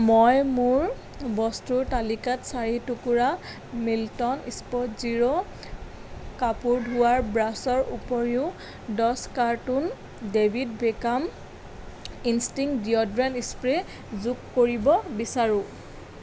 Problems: none marked